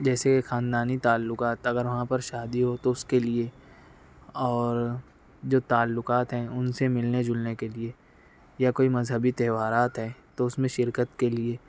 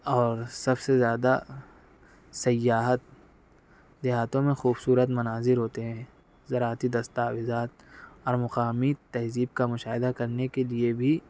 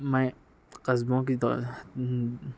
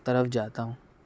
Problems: none marked